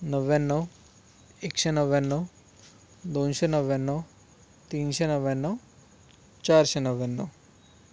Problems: background sounds at intervals